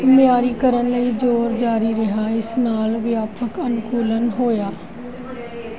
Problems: constant background noise